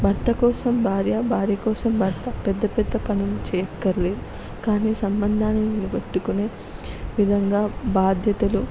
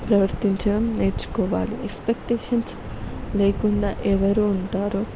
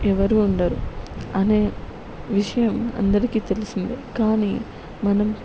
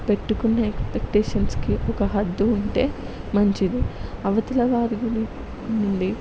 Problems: none marked